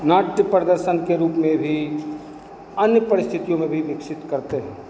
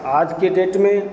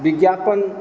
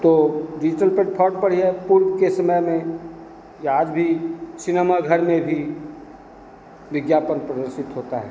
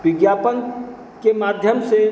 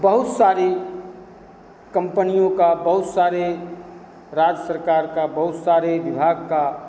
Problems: constant background noise